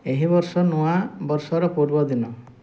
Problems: none marked